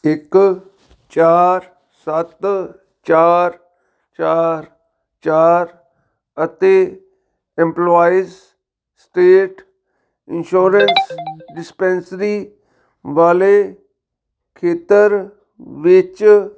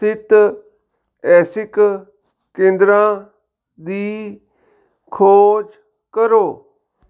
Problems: none marked